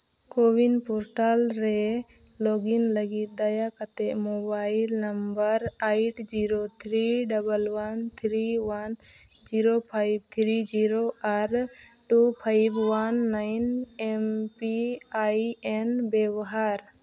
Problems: constant background noise